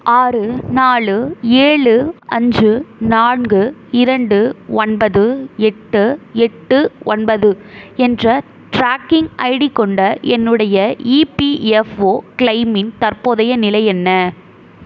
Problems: none marked